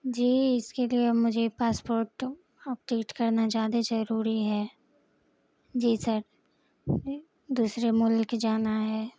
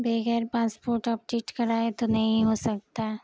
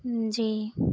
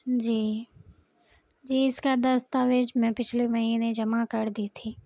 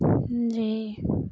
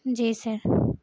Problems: background sounds at intervals, low volume